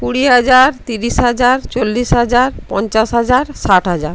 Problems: constant background noise